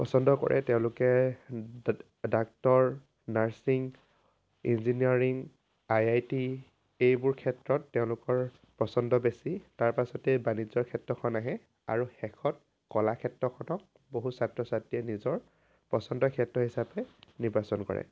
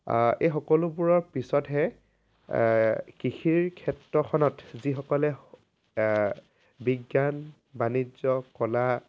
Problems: background sounds at intervals